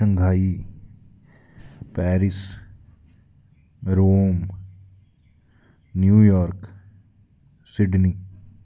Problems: background sounds at intervals, echo